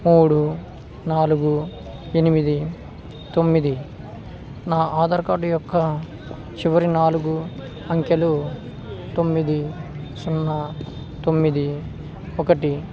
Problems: constant background noise